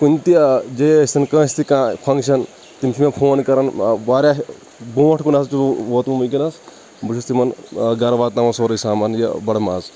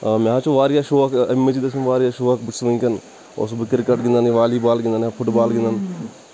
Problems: constant background noise